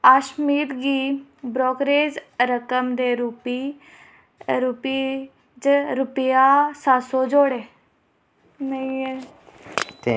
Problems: constant background noise, background conversations at intervals